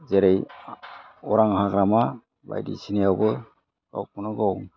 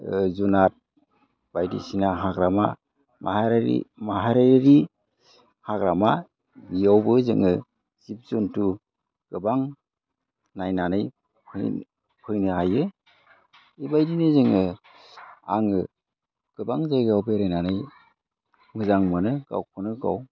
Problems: constant background noise